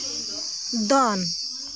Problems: constant background noise